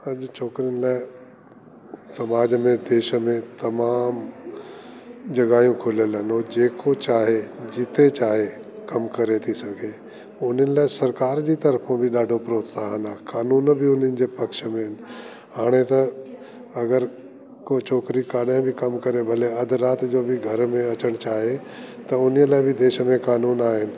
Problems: constant background noise